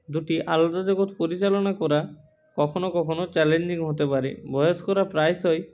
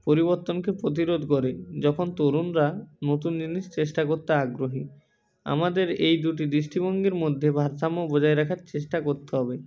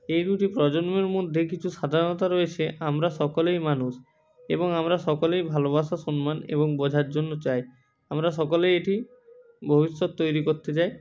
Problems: background sounds at intervals, background conversations at intervals